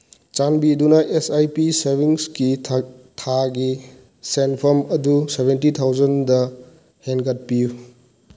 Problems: background sounds at intervals